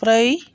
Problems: constant background noise